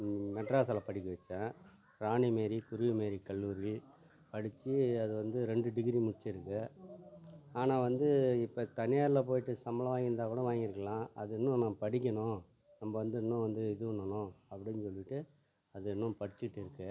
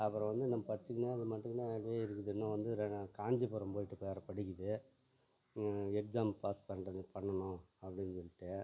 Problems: low volume